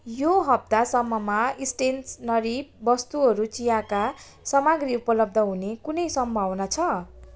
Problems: constant background noise